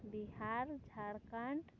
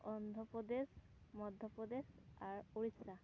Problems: constant background noise